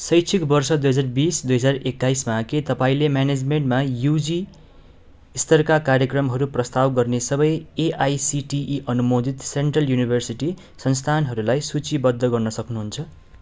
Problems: none marked